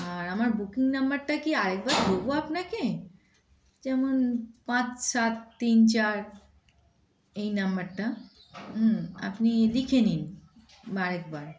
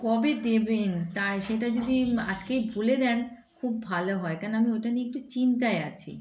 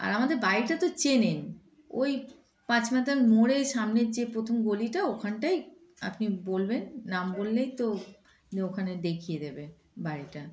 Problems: constant background noise, background conversations at intervals